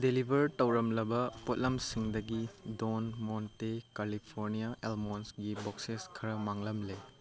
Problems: background conversations at intervals